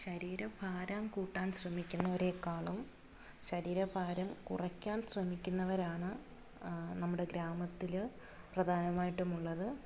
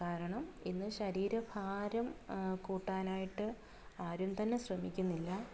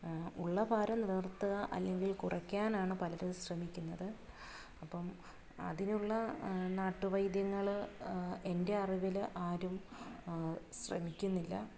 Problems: background sounds at intervals, low volume